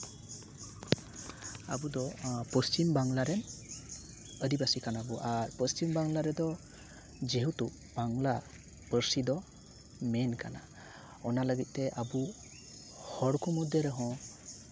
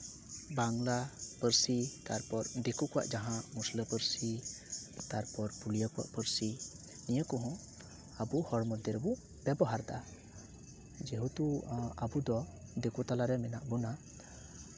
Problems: constant background noise